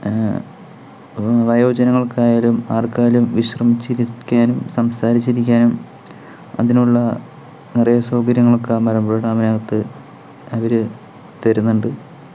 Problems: none marked